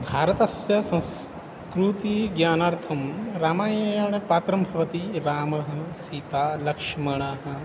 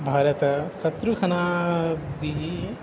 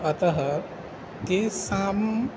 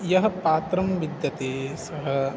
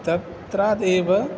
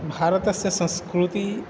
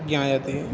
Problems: constant background noise